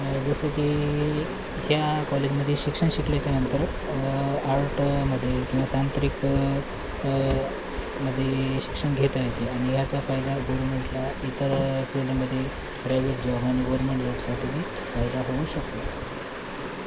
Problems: constant background noise